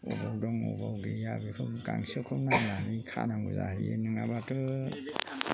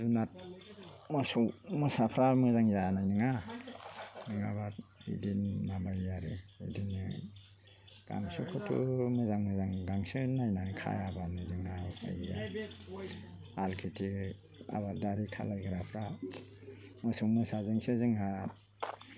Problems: constant background noise